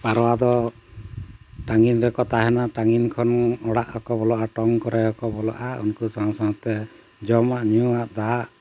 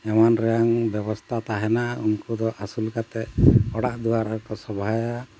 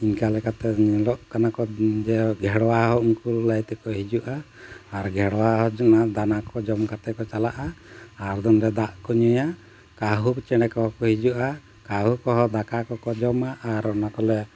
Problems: constant background noise